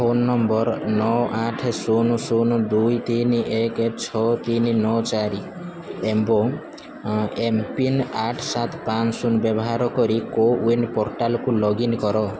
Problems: constant background noise, continuous background conversations